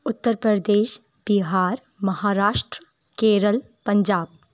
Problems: none marked